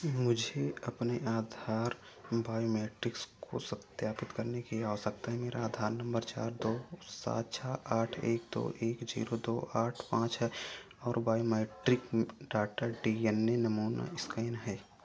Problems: none marked